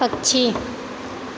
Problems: constant background noise